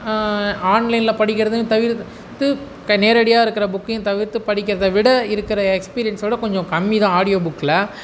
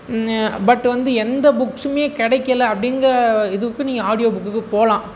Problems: background sounds at intervals